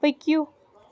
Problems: background sounds at intervals